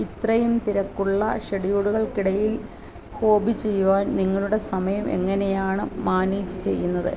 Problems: constant background noise